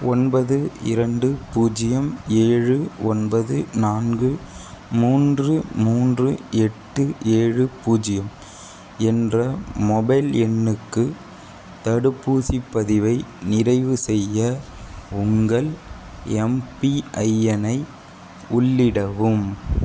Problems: none marked